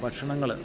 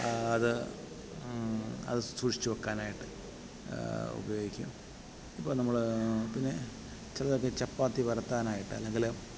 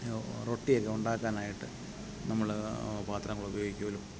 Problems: background sounds at intervals